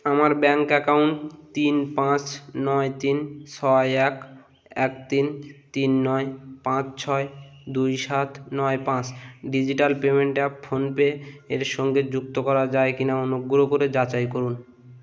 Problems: none marked